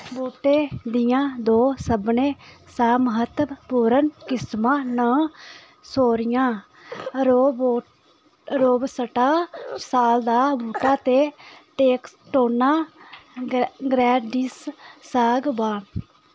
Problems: constant background noise